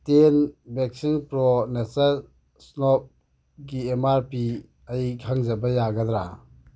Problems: background sounds at intervals